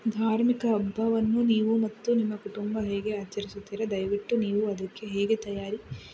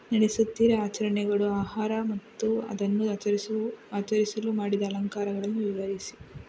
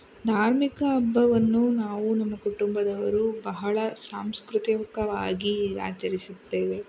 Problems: background sounds at intervals